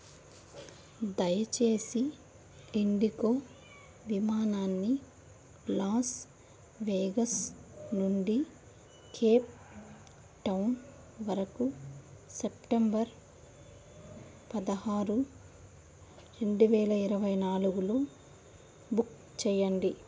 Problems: none marked